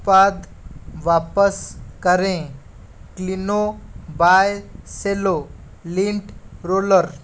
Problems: none marked